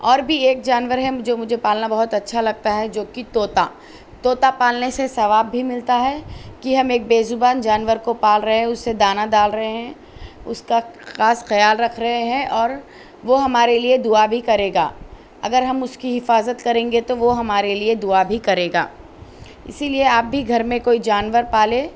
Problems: none marked